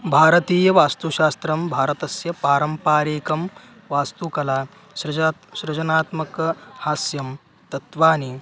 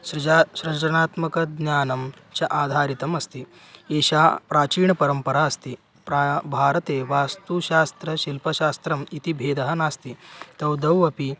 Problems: constant background noise